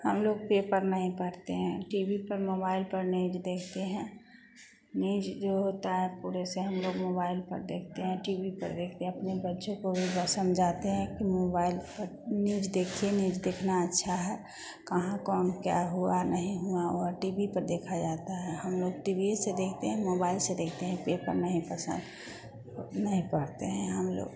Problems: none marked